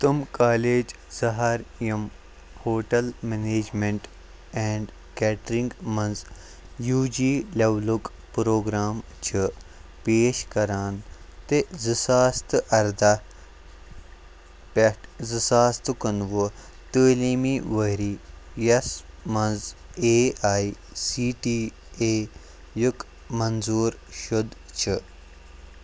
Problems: constant background noise